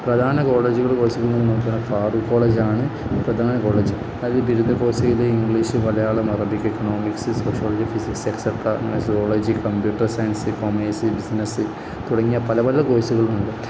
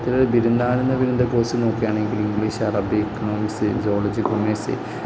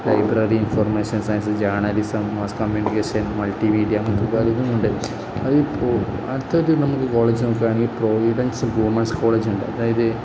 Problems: low volume